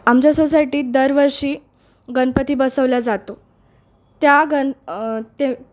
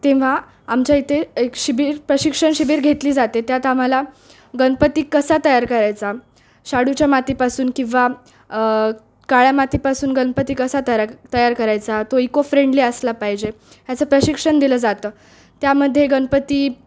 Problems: background sounds at intervals, background conversations at intervals